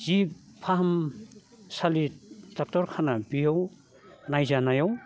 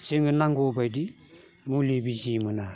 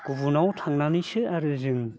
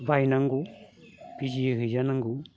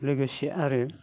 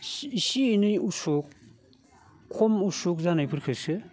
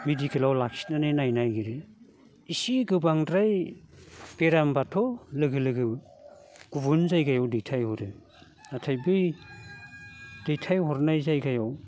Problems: none marked